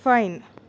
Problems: none marked